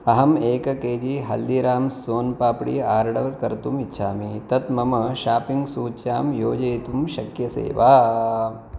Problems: none marked